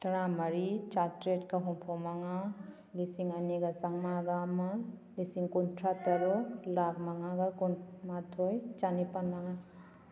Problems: background sounds at intervals